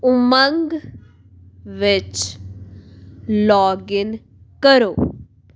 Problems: background sounds at intervals